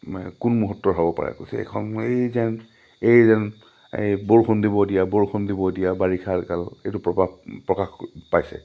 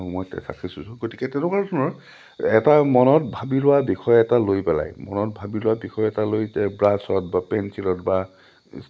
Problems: low volume